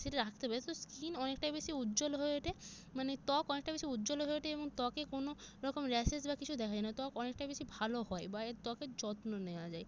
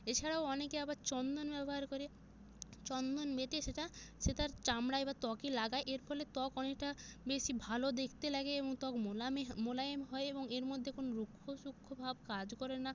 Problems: none marked